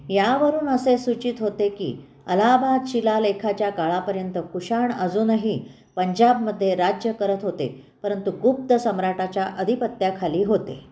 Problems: none marked